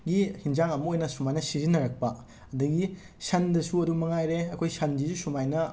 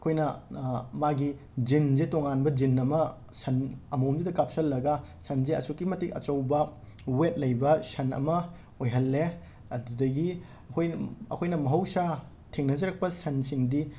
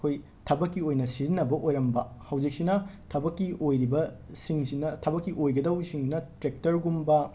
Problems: constant background noise